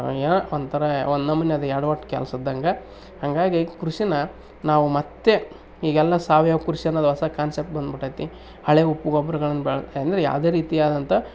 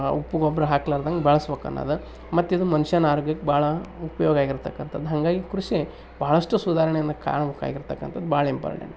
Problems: none marked